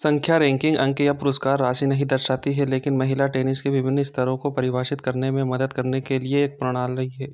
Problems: none marked